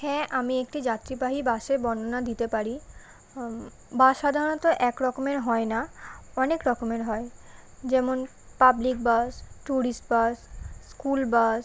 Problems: none marked